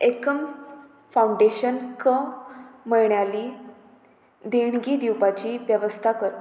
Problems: constant background noise